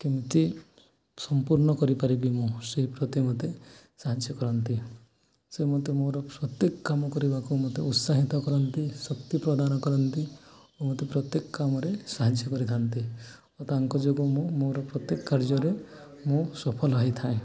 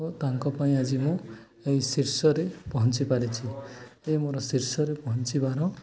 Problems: background conversations at intervals